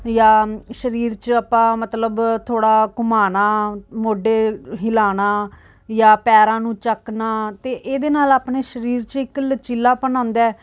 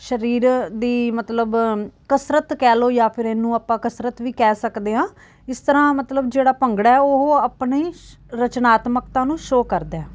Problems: background sounds at intervals